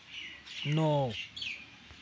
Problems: constant background noise